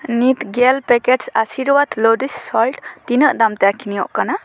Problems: constant background noise